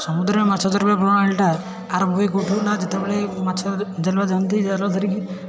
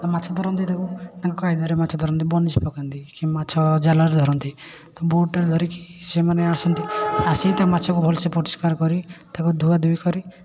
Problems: constant background noise, continuous background conversations